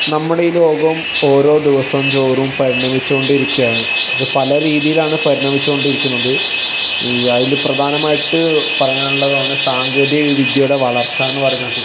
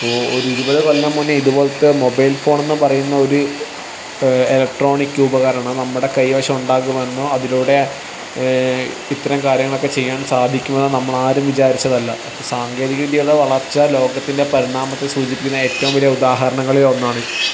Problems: background sounds at intervals